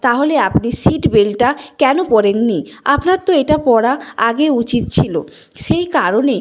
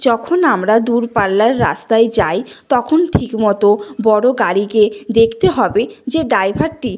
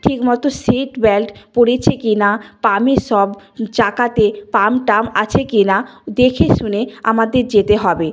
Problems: none marked